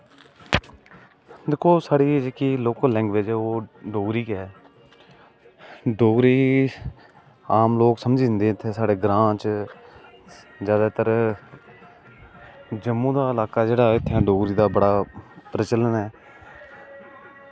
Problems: constant background noise